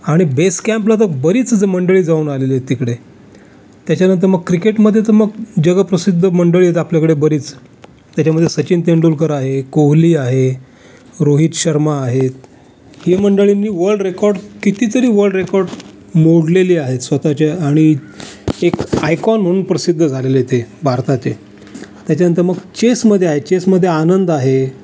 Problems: none marked